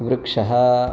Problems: none marked